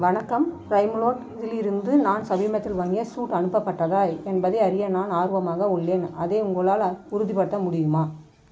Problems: constant background noise